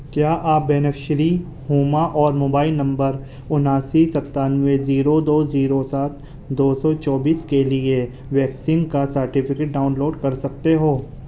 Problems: none marked